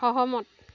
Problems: background sounds at intervals